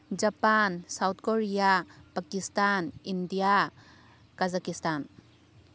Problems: none marked